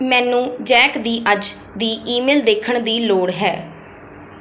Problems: none marked